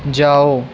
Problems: constant background noise